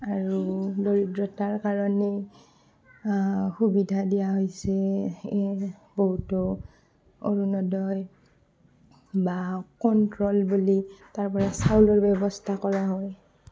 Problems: constant background noise, background conversations at intervals, low volume